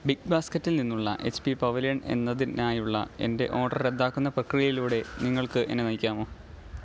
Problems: background sounds at intervals, low volume